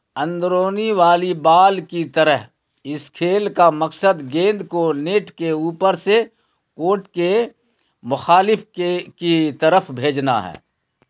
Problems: none marked